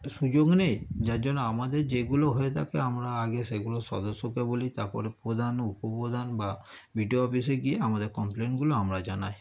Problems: none marked